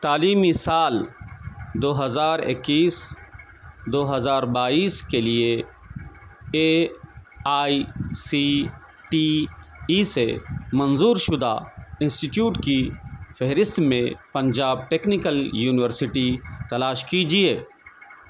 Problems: none marked